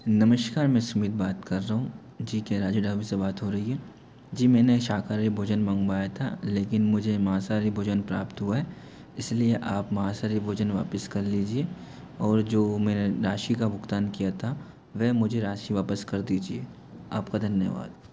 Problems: constant background noise